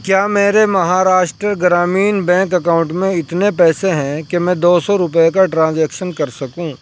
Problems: background sounds at intervals